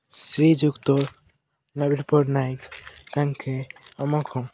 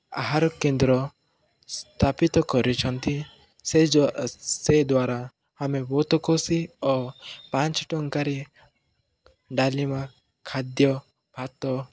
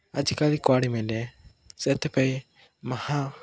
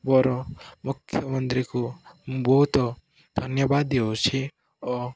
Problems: none marked